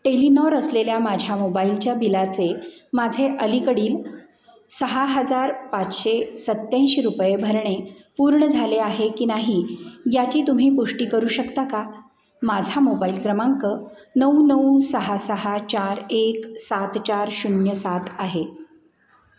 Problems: none marked